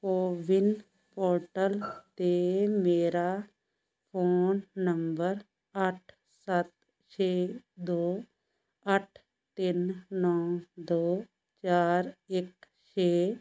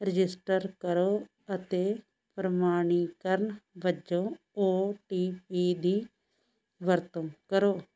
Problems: background sounds at intervals